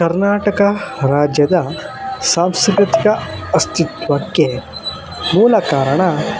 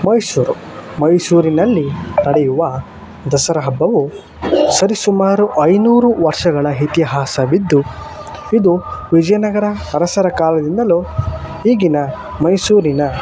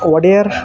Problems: constant background noise